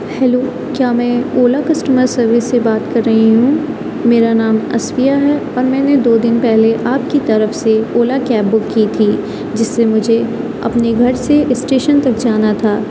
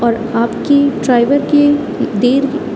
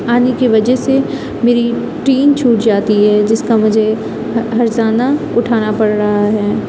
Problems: constant background noise